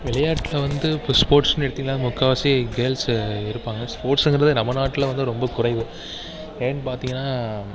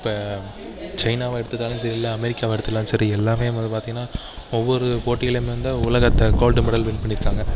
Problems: background sounds at intervals